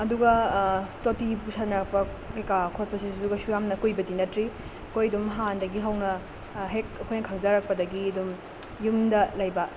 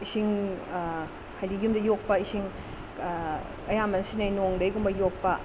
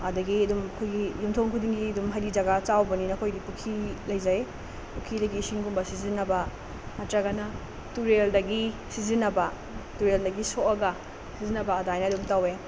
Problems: constant background noise